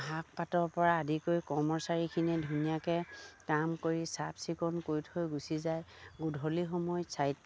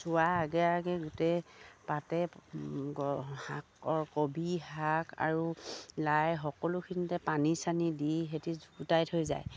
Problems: none marked